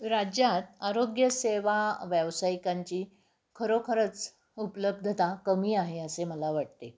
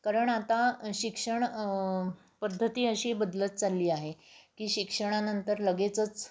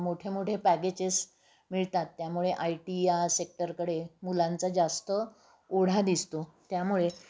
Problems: constant background noise